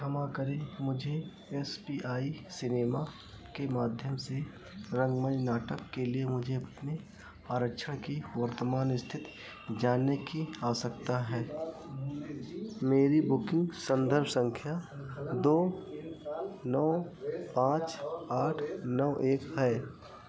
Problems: none marked